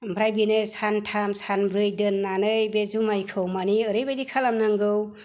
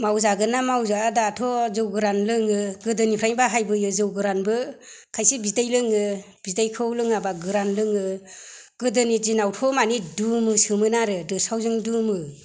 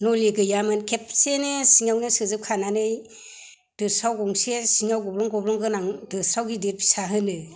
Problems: none marked